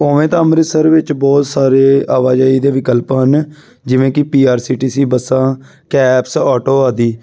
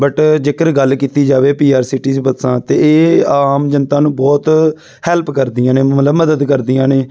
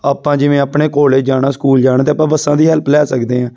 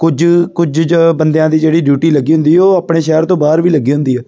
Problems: background sounds at intervals